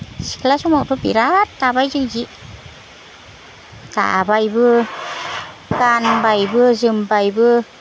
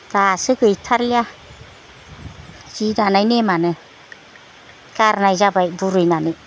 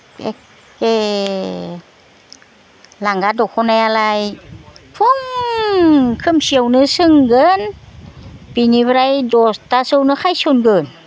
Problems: background conversations at intervals